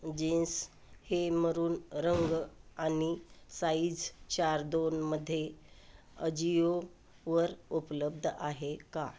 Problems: none marked